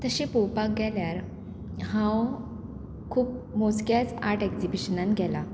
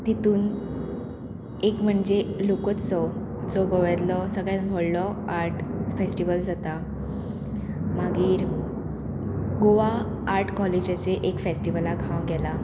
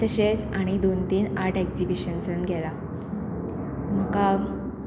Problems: constant background noise